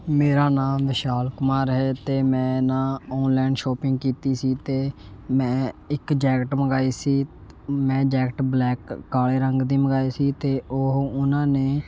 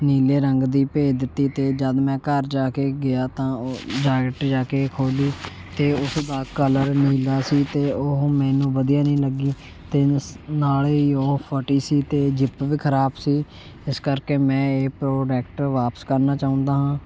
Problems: none marked